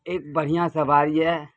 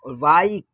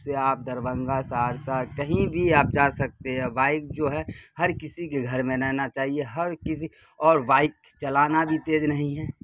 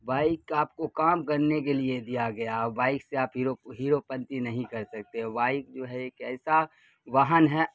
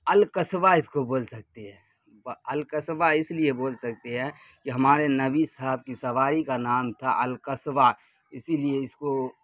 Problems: constant background noise